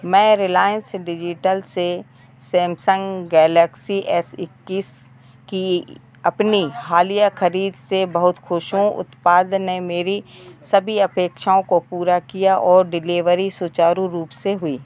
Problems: none marked